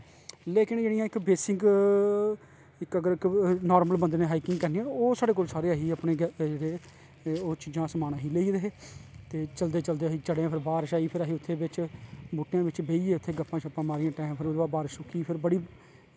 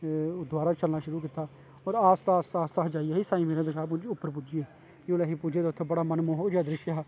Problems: constant background noise